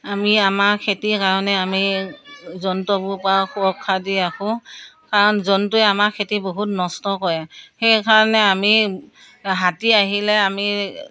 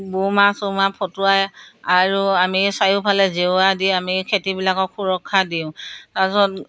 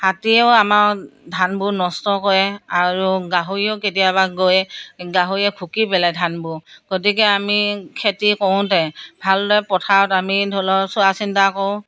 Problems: background conversations at intervals